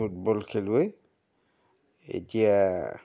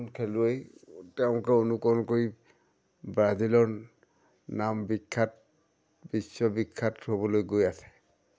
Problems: none marked